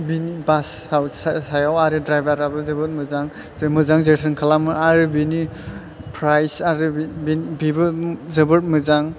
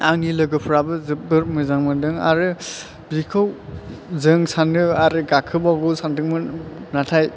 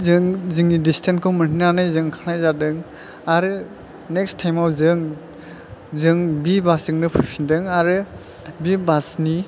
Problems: none marked